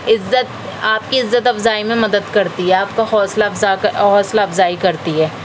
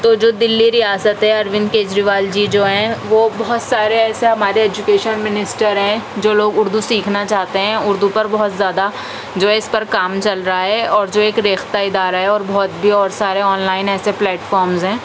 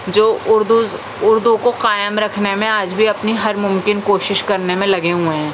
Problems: constant background noise